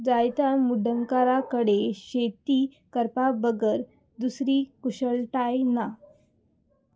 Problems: background sounds at intervals